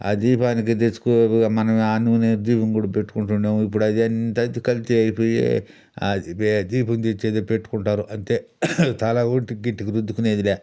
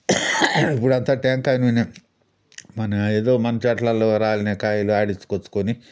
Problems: background sounds at intervals